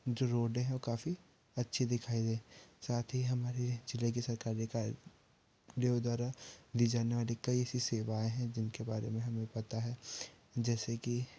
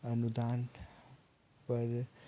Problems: none marked